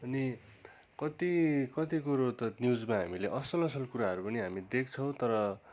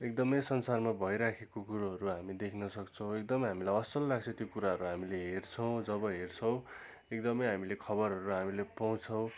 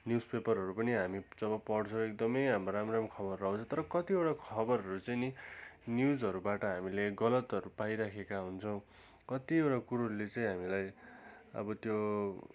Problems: constant background noise